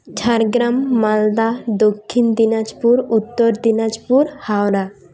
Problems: none marked